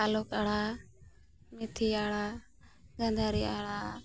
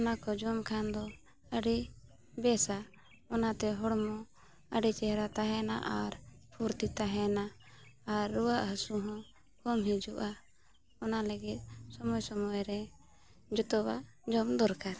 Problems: background sounds at intervals